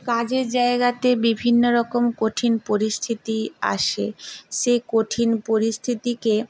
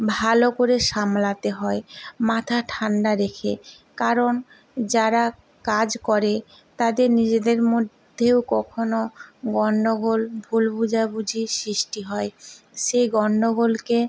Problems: background conversations at intervals